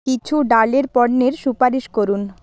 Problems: background sounds at intervals